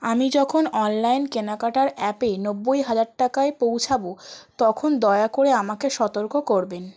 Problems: none marked